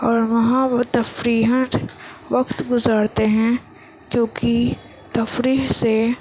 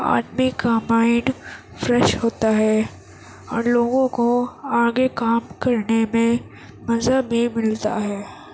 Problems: constant background noise